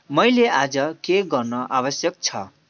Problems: background sounds at intervals